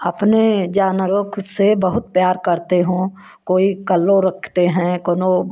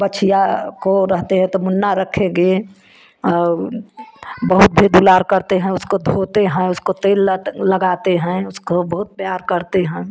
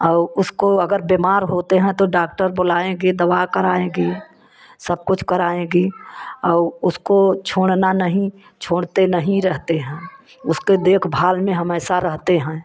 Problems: constant background noise